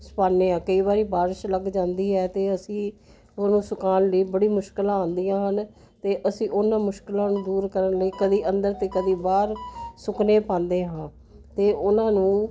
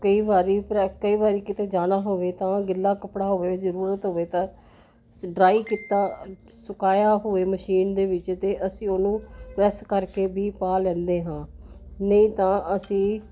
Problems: none marked